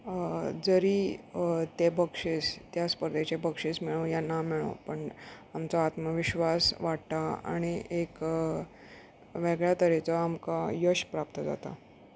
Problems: none marked